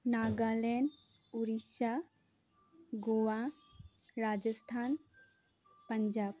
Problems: none marked